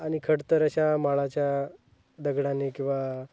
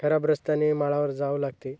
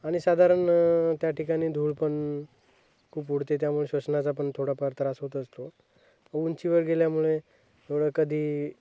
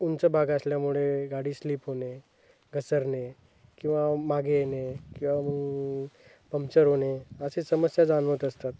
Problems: none marked